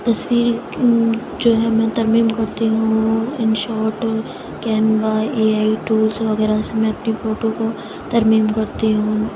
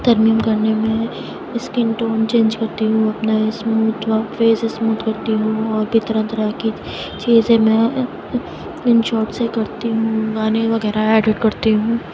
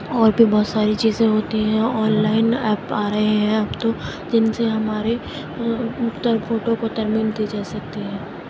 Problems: constant background noise, low volume